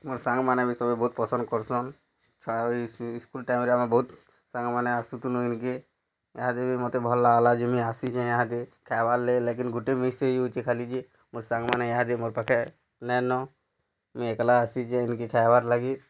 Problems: none marked